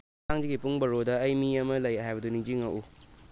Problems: background sounds at intervals